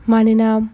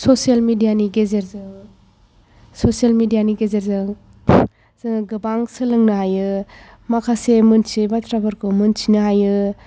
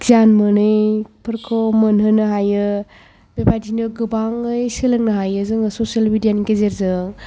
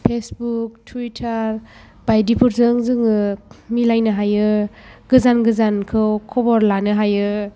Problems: background sounds at intervals